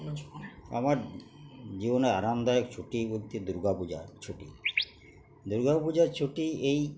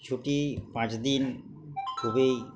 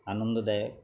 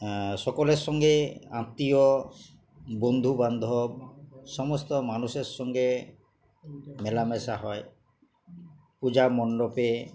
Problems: none marked